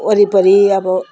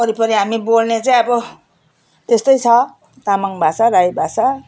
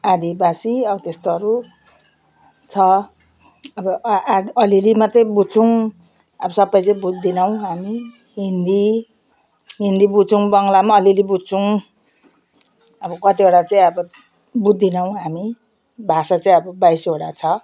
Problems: background sounds at intervals